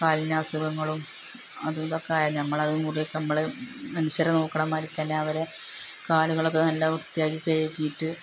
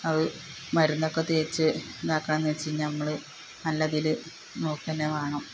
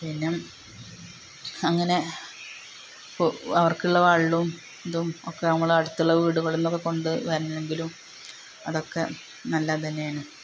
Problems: constant background noise